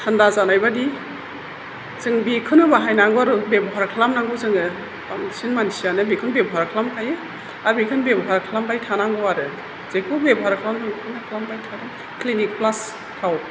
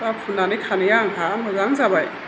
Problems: constant background noise